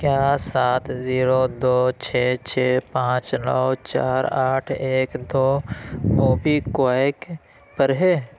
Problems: constant background noise